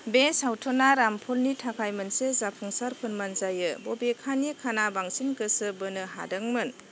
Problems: constant background noise